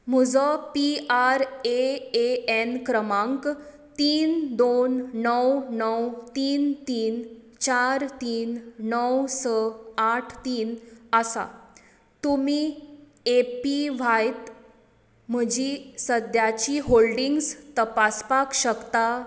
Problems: echo